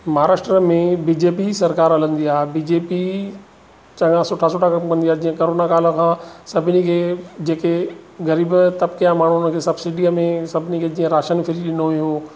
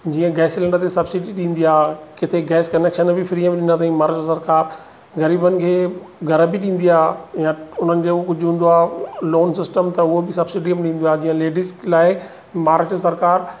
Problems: none marked